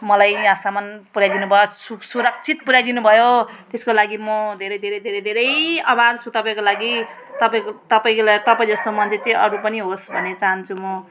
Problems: background sounds at intervals